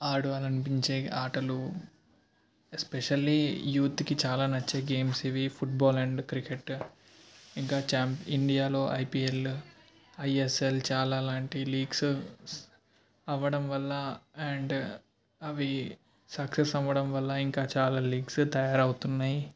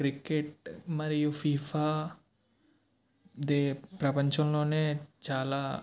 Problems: none marked